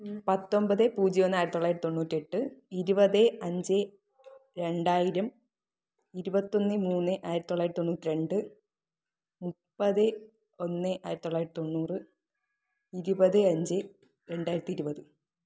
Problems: low volume